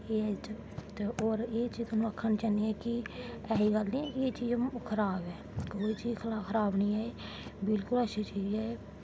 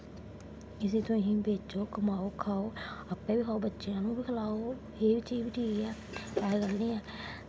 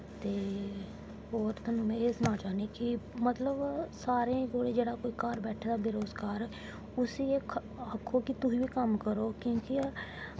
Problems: none marked